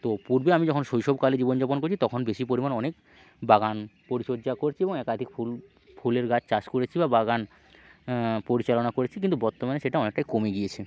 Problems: constant background noise, low volume